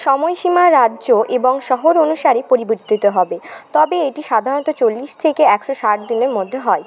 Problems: constant background noise, continuous background conversations